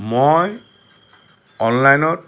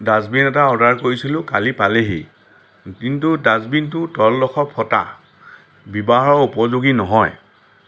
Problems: background sounds at intervals